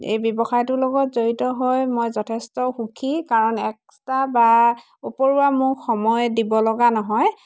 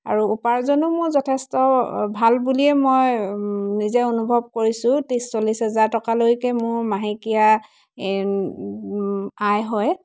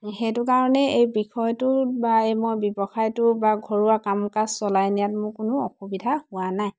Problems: none marked